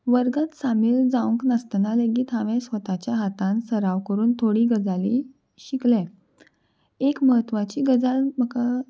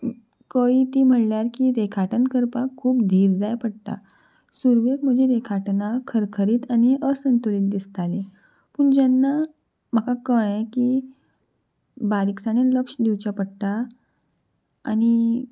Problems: background sounds at intervals